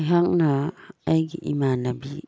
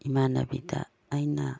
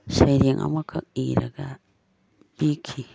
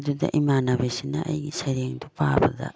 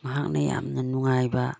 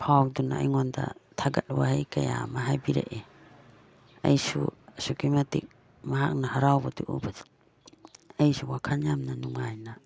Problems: none marked